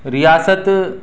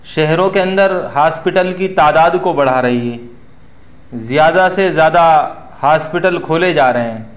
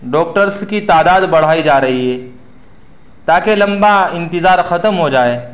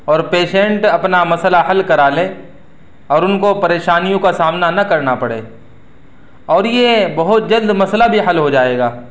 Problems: background sounds at intervals